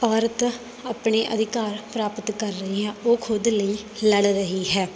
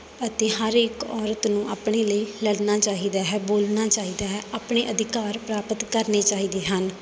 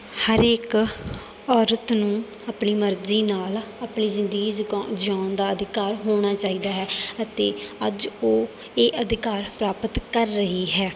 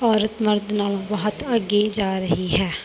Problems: none marked